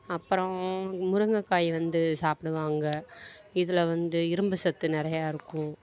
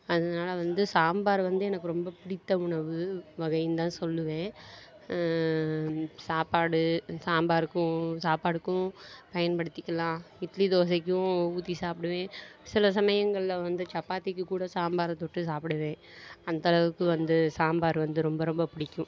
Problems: background conversations at intervals